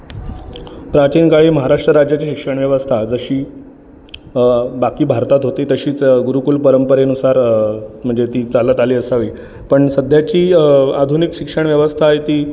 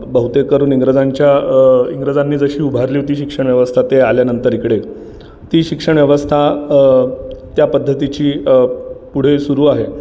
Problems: background sounds at intervals, continuous background conversations